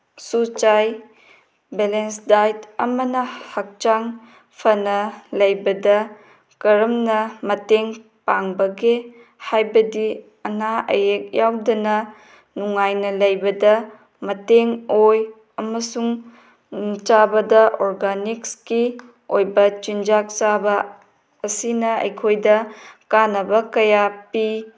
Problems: none marked